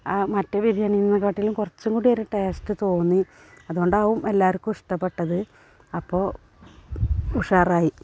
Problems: none marked